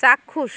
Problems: none marked